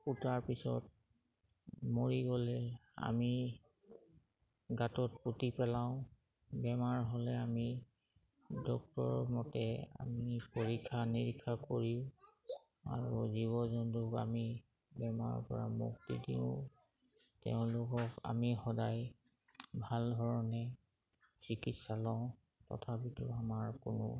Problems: background sounds at intervals